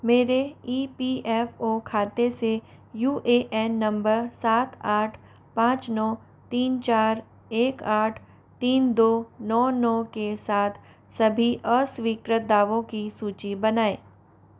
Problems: none marked